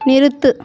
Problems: constant background noise